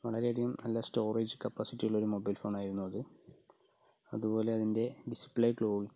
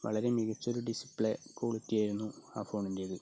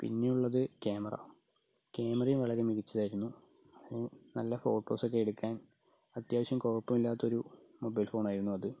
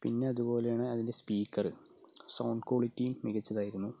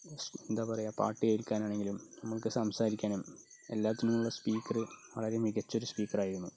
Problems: low volume